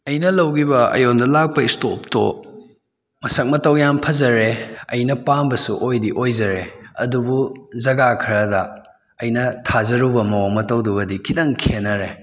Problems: constant background noise